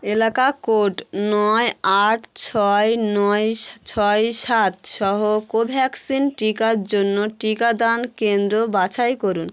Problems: constant background noise